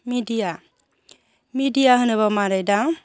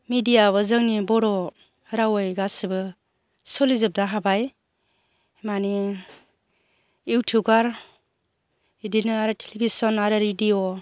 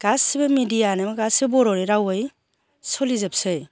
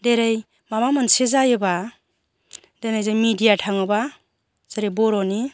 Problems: none marked